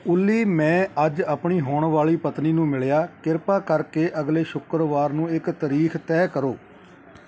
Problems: continuous background conversations